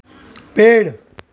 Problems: constant background noise